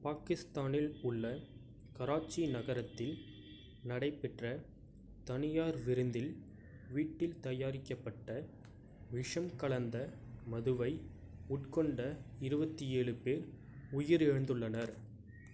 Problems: low volume